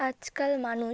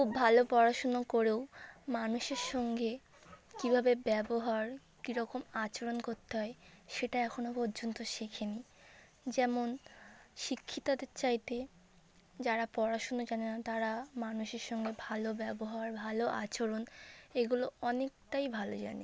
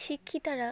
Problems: none marked